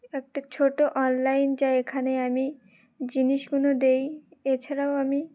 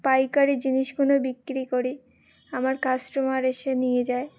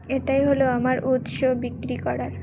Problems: none marked